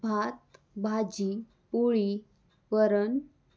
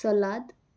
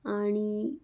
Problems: none marked